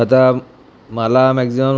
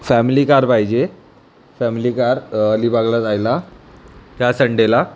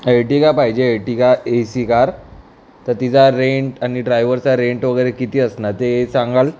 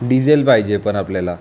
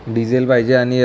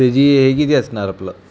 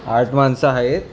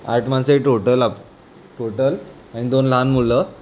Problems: background sounds at intervals